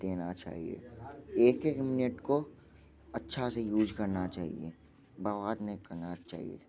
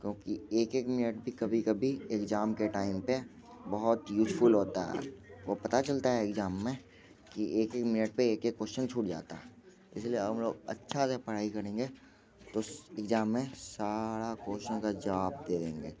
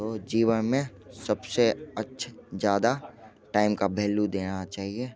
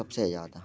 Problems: constant background noise, background conversations at intervals